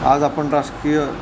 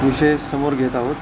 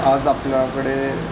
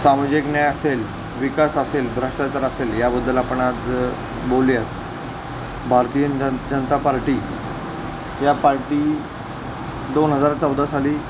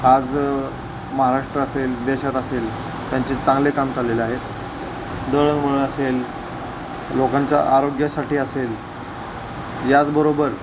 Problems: constant background noise